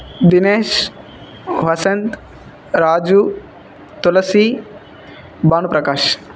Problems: none marked